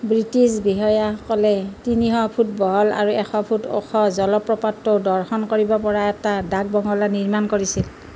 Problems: none marked